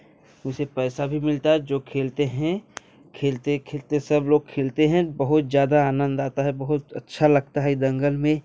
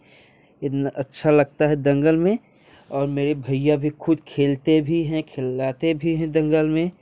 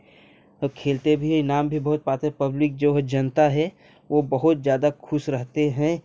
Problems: constant background noise